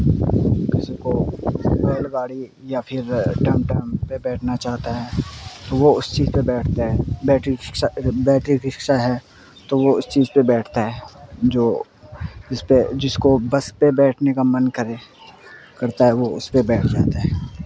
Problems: constant background noise